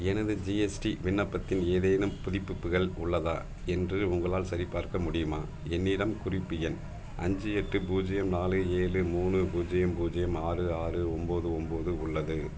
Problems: background sounds at intervals